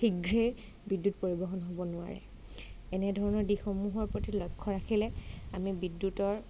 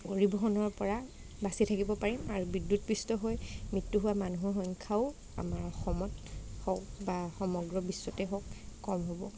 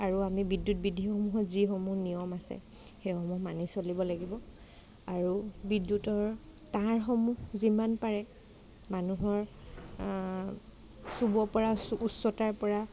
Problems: none marked